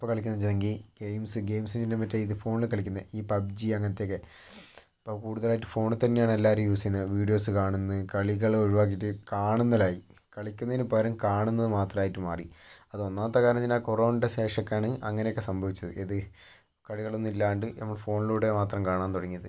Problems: low volume